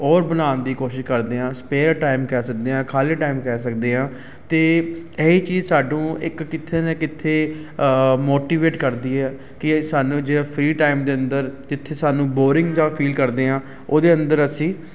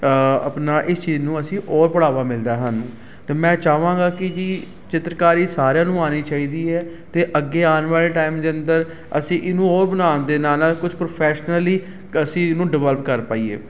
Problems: constant background noise